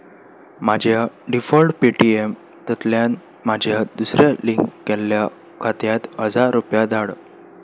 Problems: background sounds at intervals